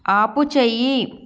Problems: none marked